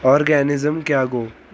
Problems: constant background noise